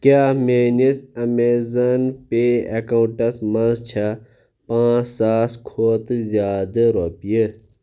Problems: constant background noise